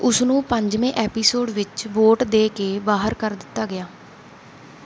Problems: background sounds at intervals